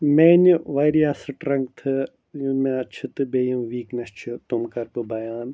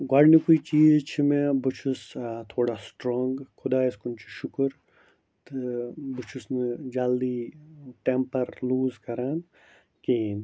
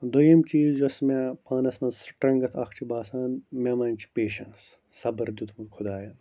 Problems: low volume